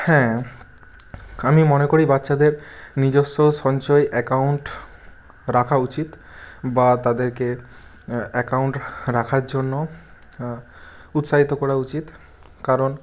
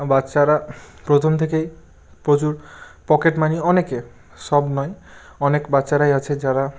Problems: background sounds at intervals